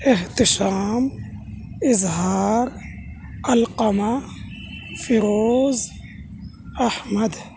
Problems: none marked